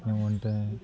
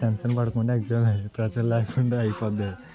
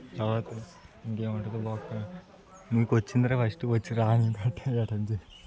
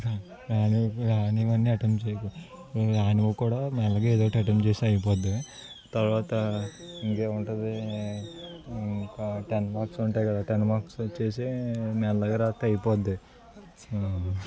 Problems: continuous background conversations